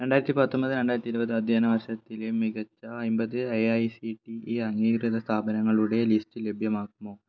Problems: low volume